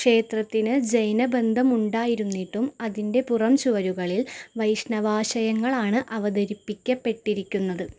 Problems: background sounds at intervals